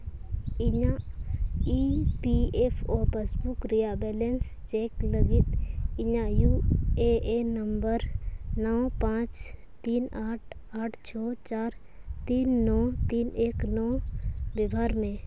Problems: background sounds at intervals